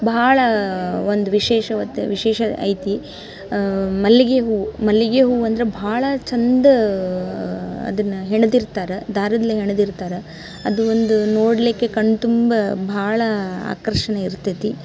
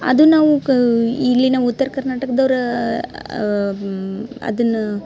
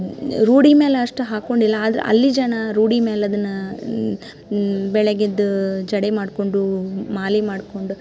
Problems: none marked